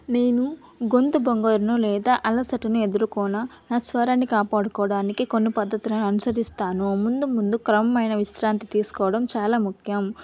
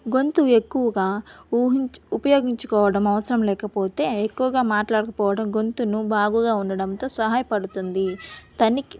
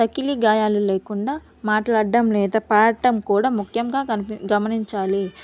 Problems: background sounds at intervals